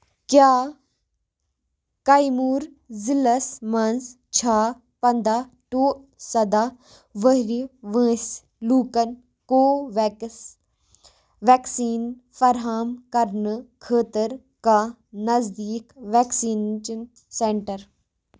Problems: background sounds at intervals, background conversations at intervals